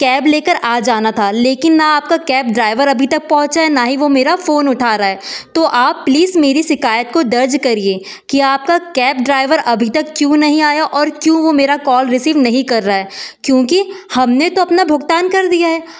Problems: background sounds at intervals